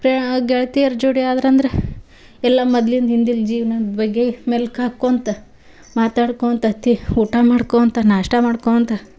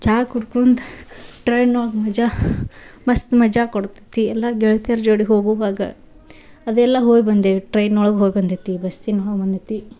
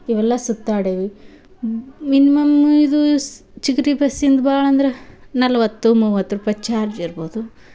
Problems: none marked